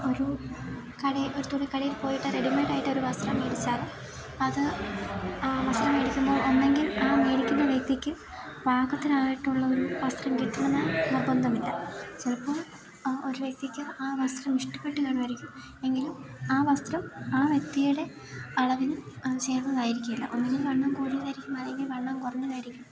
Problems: constant background noise